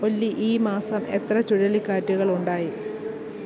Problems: constant background noise